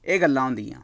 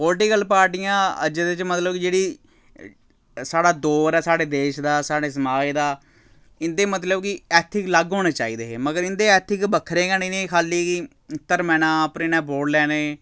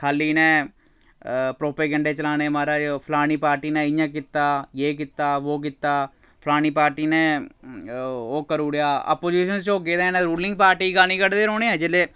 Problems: none marked